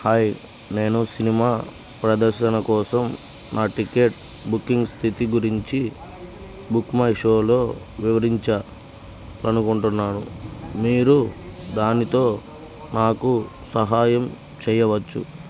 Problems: none marked